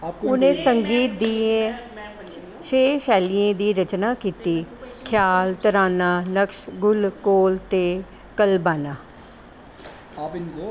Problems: constant background noise